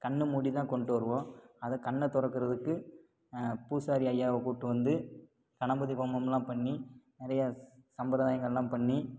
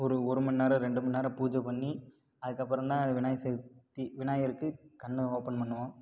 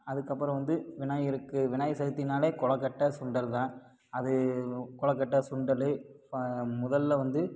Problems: none marked